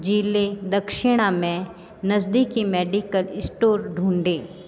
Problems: constant background noise